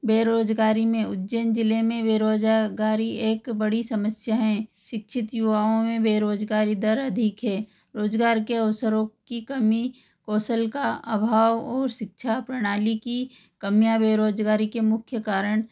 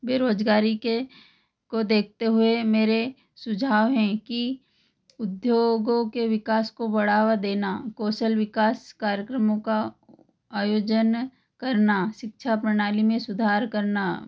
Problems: none marked